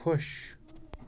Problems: none marked